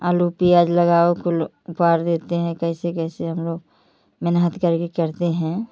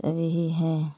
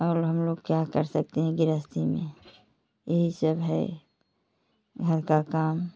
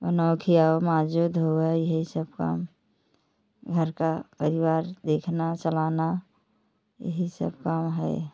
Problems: none marked